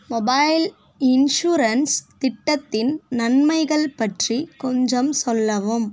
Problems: constant background noise